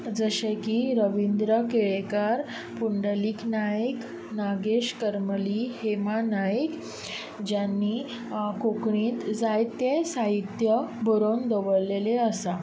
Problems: none marked